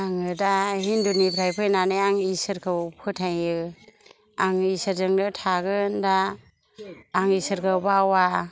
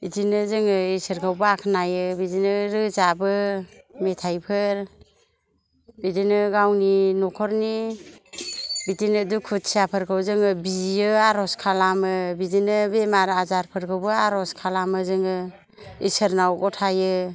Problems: low volume